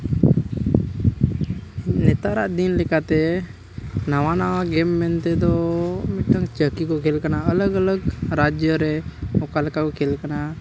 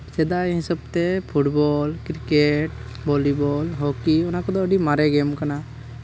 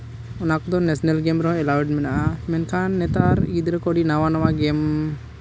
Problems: background sounds at intervals